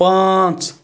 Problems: none marked